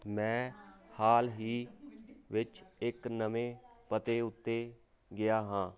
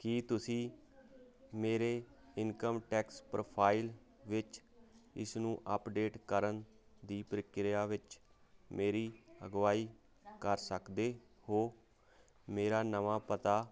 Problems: constant background noise